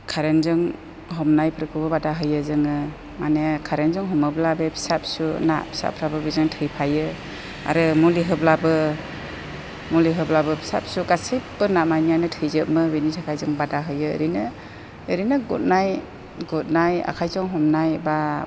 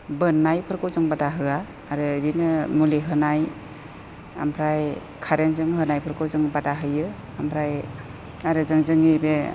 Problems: constant background noise